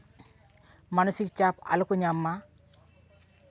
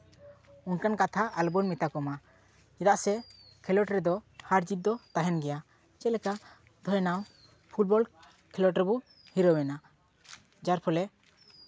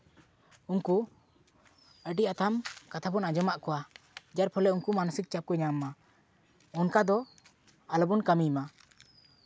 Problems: none marked